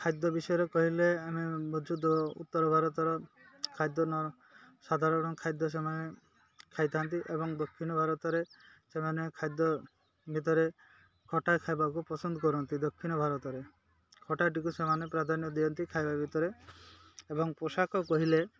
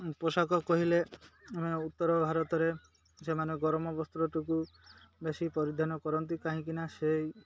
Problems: none marked